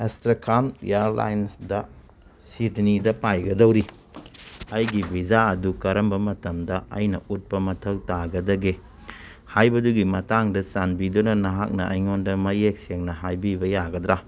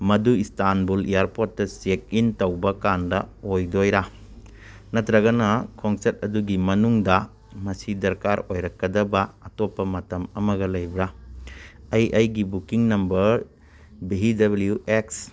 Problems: none marked